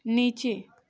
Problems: none marked